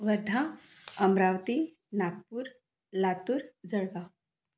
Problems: none marked